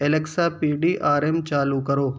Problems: background sounds at intervals